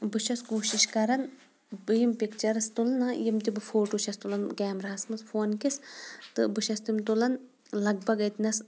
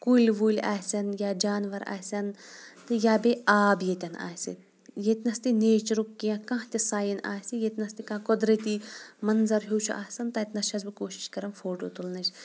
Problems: background sounds at intervals